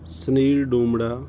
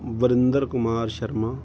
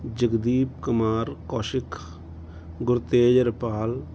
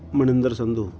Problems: constant background noise